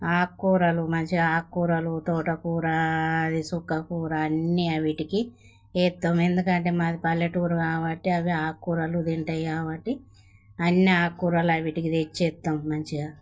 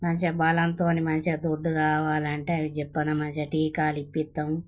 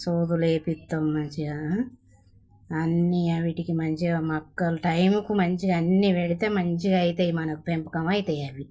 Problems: none marked